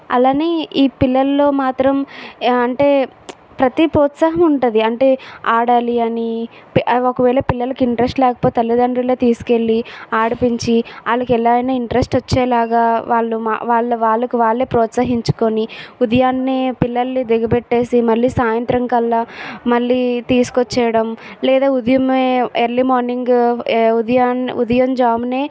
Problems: background sounds at intervals